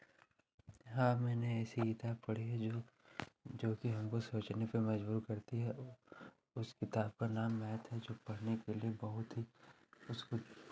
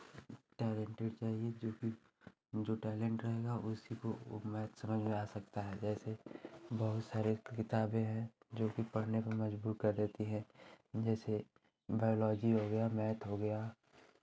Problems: constant background noise, background conversations at intervals